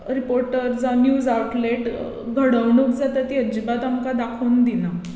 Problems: none marked